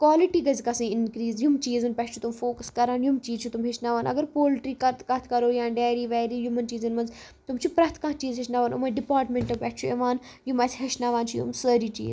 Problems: background sounds at intervals